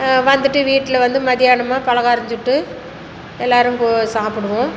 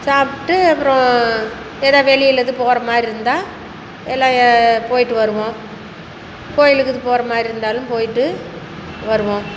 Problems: constant background noise